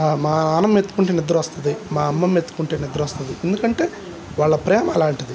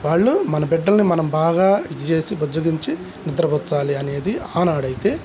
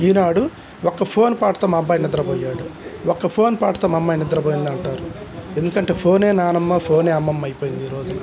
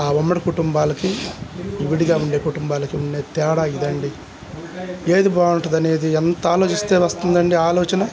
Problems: none marked